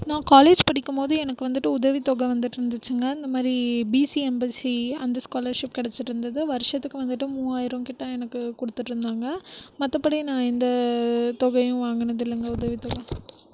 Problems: background sounds at intervals